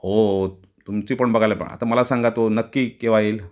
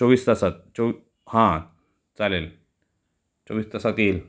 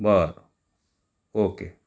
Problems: constant background noise, background conversations at intervals